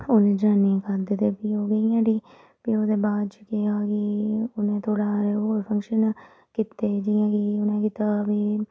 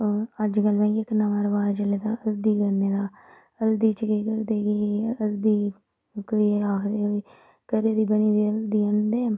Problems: background sounds at intervals